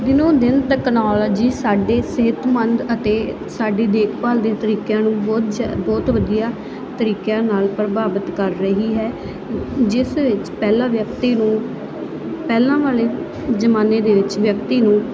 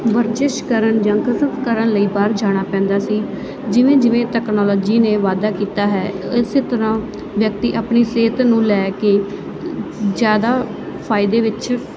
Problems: none marked